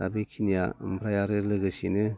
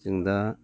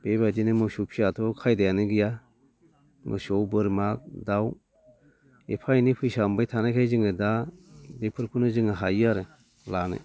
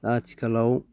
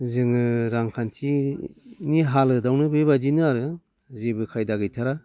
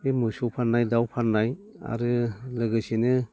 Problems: none marked